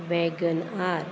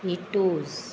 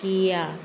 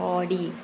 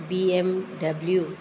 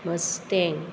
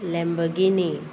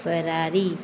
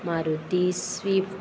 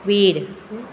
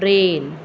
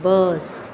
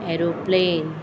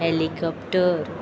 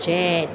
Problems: constant background noise